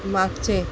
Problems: constant background noise